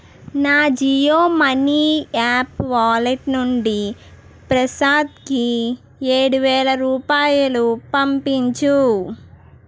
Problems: none marked